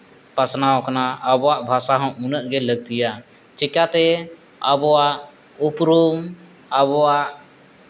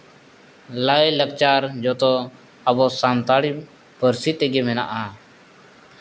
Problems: none marked